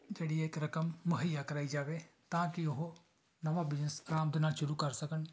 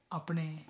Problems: background sounds at intervals